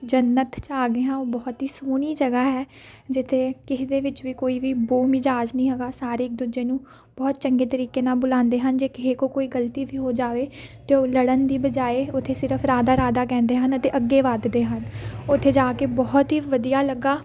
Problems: background sounds at intervals, background conversations at intervals